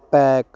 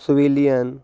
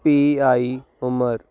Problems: none marked